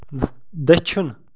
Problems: background sounds at intervals